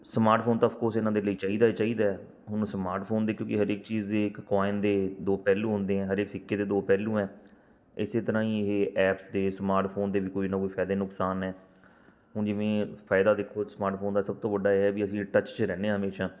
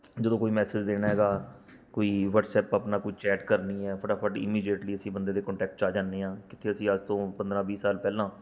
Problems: background sounds at intervals